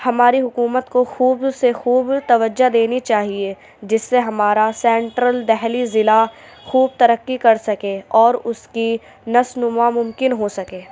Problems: none marked